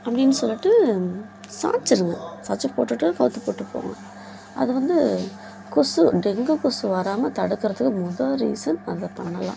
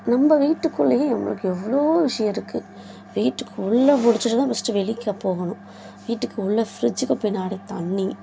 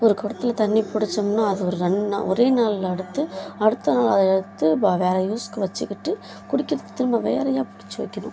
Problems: background sounds at intervals, background conversations at intervals